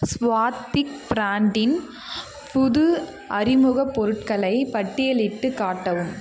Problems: constant background noise